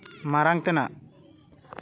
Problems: constant background noise